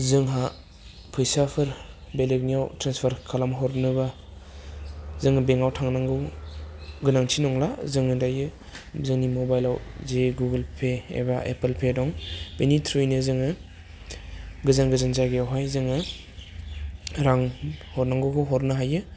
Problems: none marked